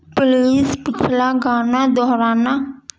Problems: constant background noise